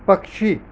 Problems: background sounds at intervals